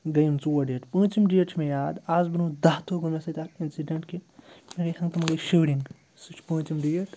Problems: constant background noise